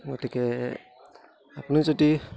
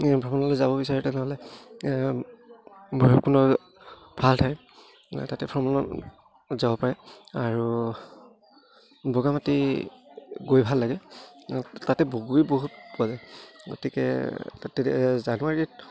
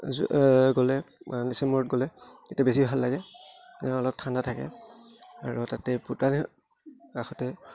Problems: none marked